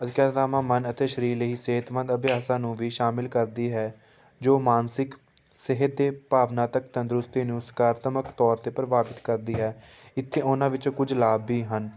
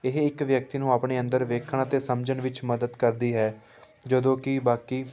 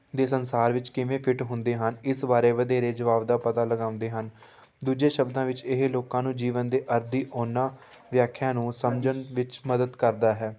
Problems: background sounds at intervals, background conversations at intervals